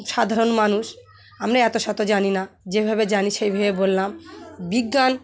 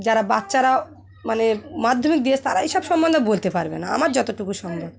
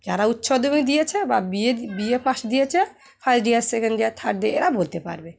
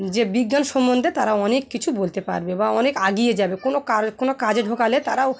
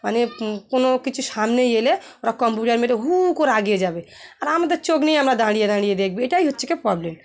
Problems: none marked